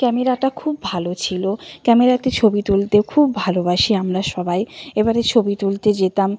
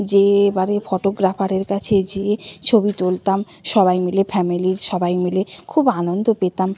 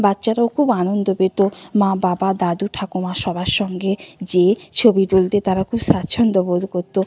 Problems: constant background noise